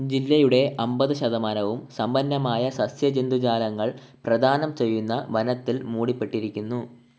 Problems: background sounds at intervals